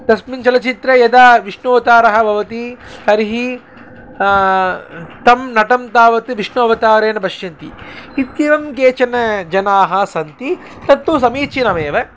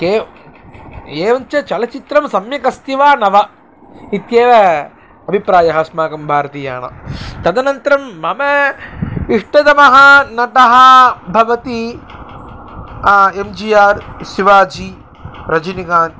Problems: constant background noise